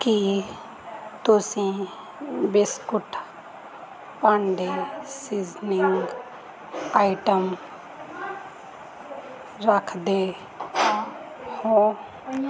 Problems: continuous background conversations